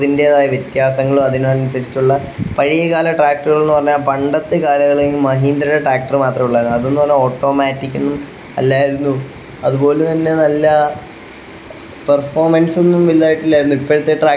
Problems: constant background noise